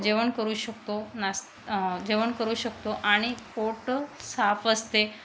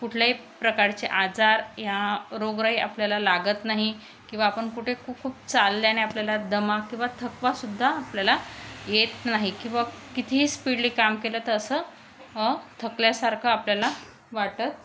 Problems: none marked